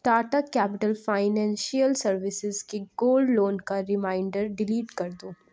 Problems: none marked